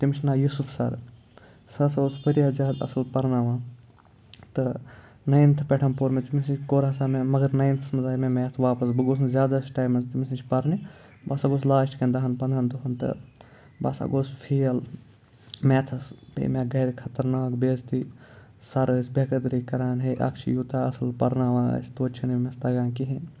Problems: none marked